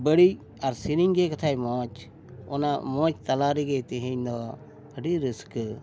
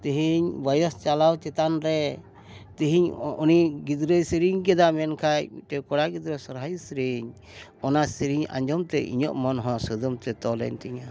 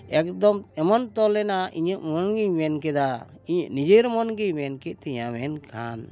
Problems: constant background noise